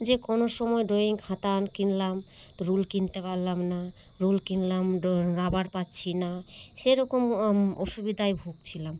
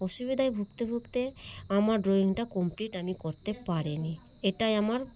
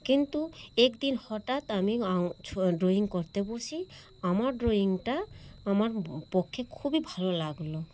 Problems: constant background noise, background conversations at intervals